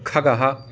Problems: background conversations at intervals